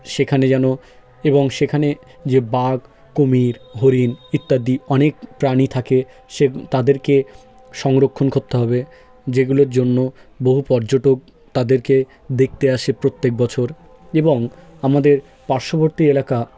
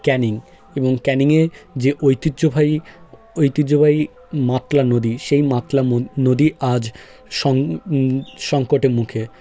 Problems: background sounds at intervals